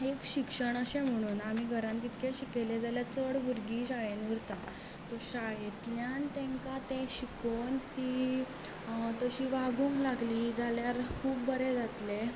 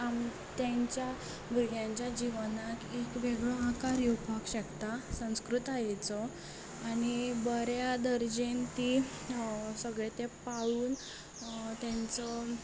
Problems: background sounds at intervals